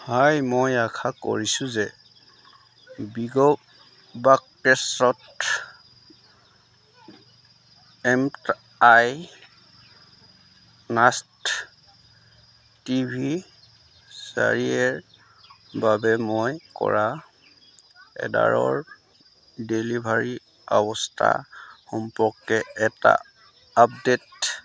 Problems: none marked